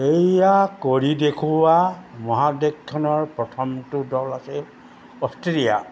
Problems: none marked